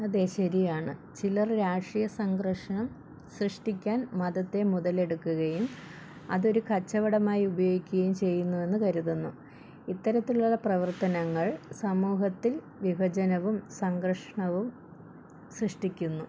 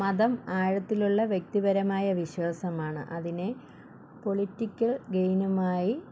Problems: low volume